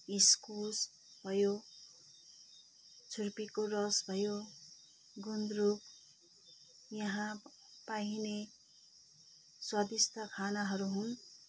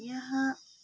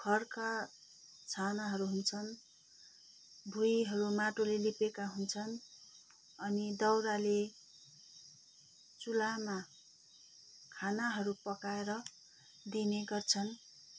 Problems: none marked